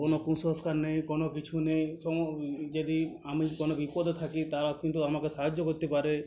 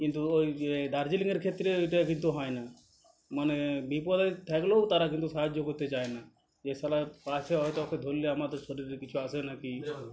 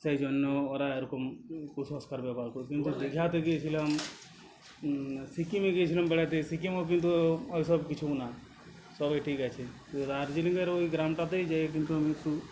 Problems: constant background noise